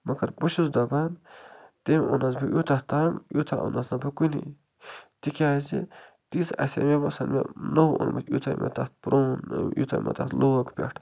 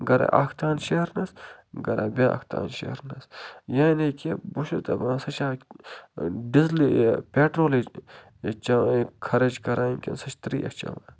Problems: low volume